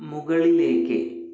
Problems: echo, low volume